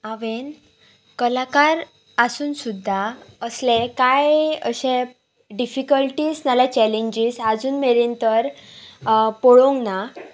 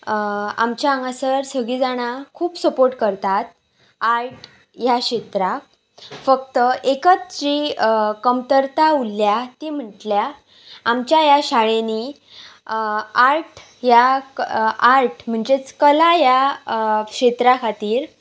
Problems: none marked